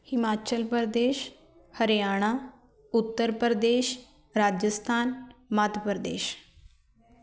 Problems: background conversations at intervals